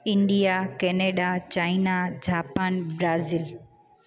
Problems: constant background noise, echo